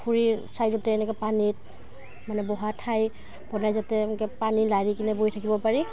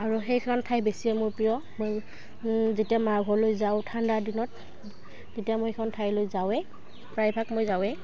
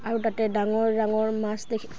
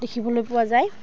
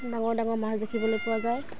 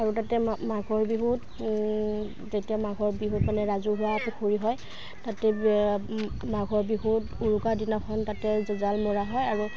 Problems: background sounds at intervals